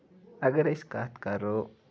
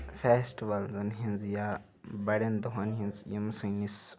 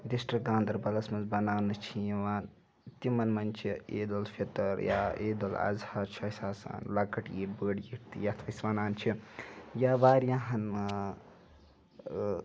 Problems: background sounds at intervals, background conversations at intervals